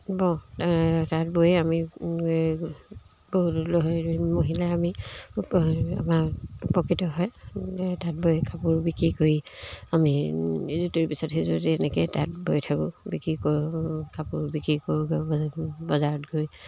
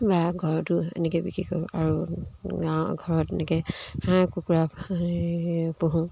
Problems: background sounds at intervals